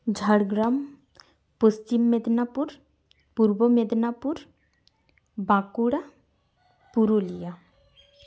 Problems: none marked